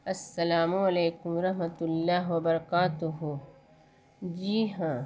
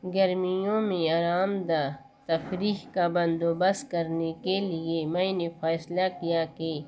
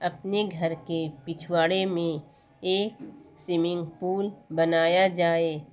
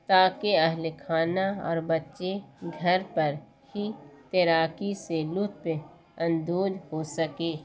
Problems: constant background noise